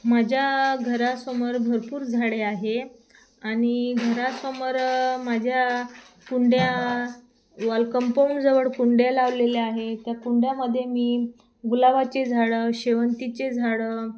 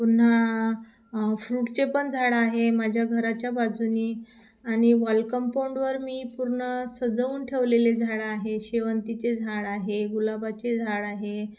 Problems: constant background noise